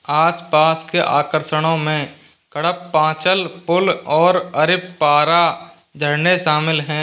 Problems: background sounds at intervals